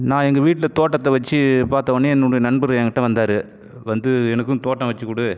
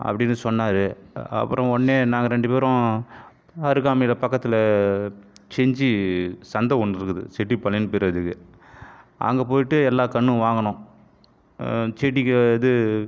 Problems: none marked